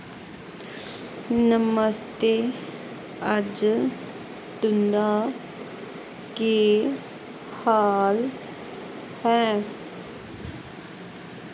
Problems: constant background noise